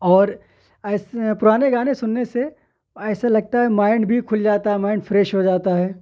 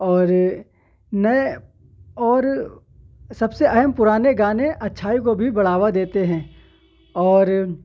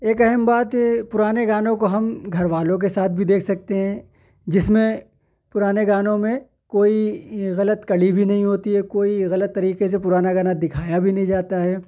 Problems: none marked